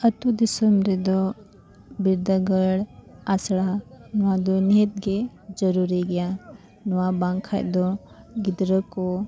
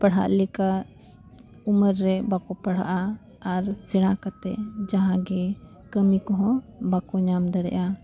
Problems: constant background noise, background conversations at intervals